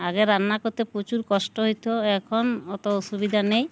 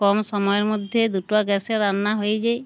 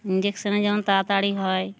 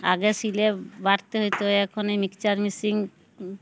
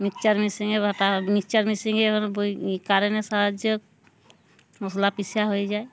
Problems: background sounds at intervals